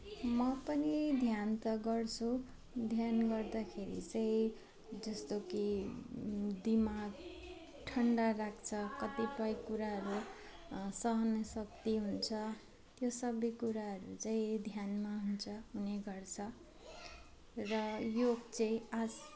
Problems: none marked